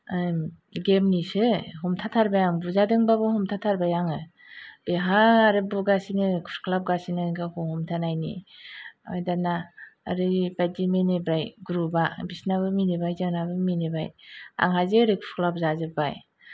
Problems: none marked